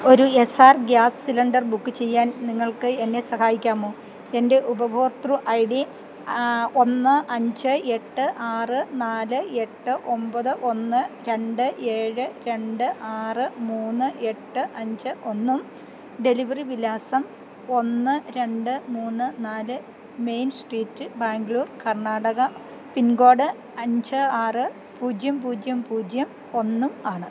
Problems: none marked